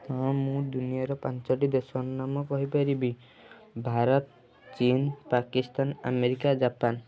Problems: none marked